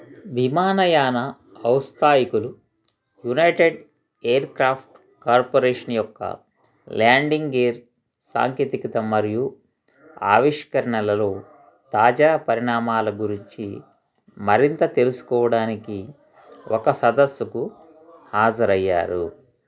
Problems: continuous background conversations